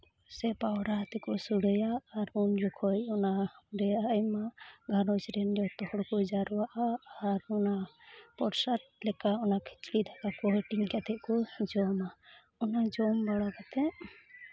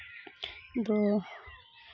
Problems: constant background noise